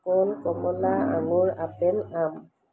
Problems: background sounds at intervals